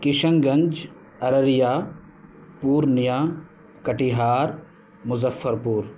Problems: constant background noise